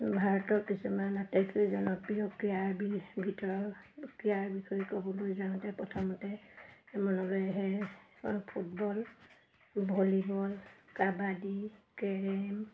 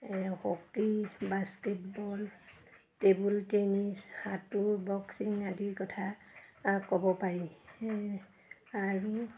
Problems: none marked